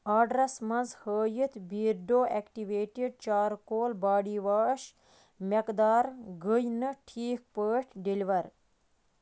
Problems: background sounds at intervals